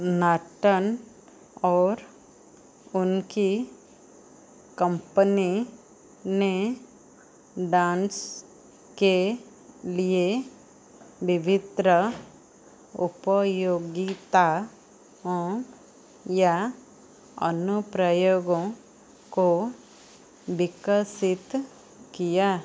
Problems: none marked